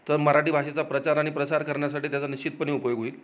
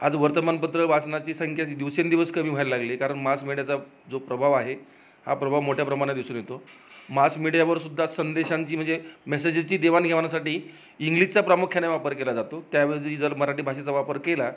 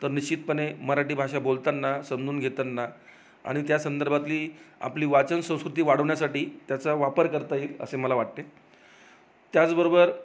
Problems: none marked